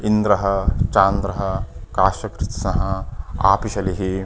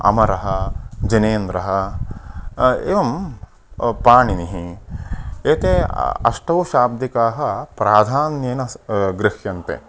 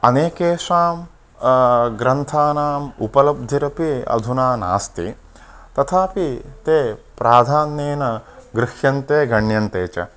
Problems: background conversations at intervals